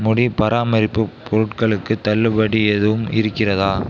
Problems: background sounds at intervals